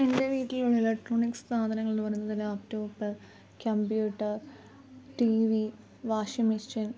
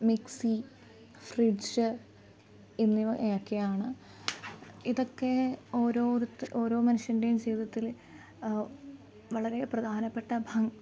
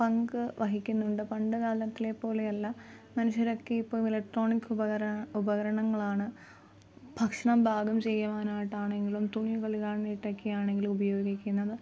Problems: constant background noise, low volume